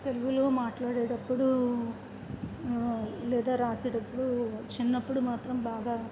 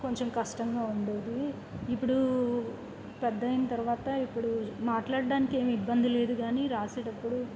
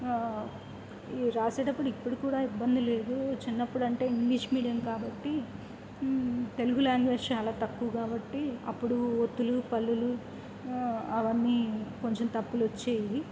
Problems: none marked